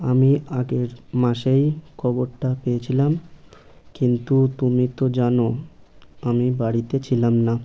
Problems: none marked